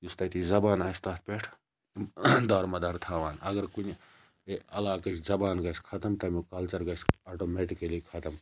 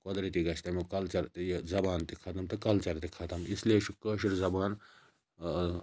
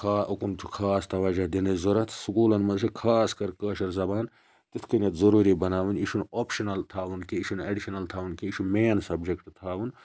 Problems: low volume